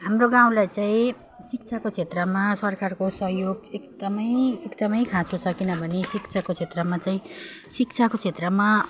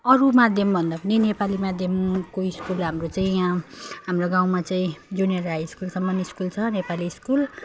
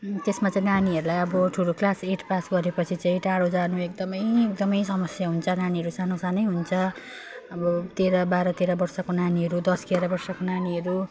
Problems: none marked